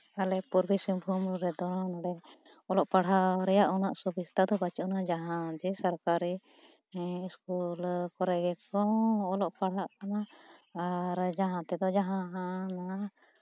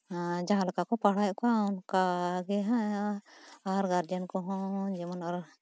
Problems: none marked